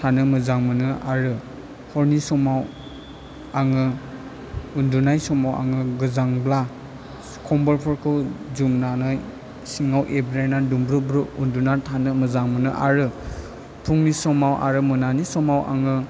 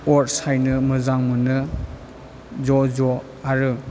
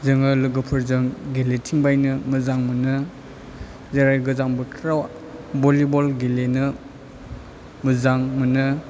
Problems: low volume